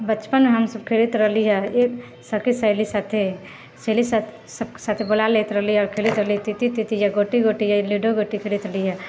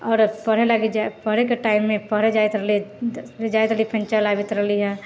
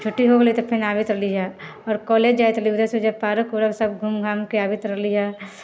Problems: none marked